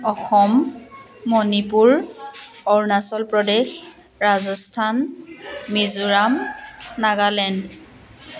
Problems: continuous background conversations